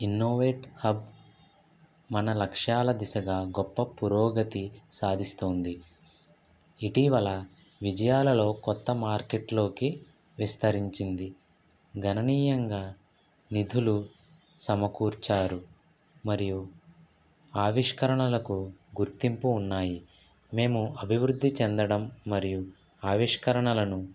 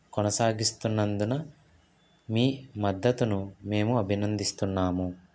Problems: background sounds at intervals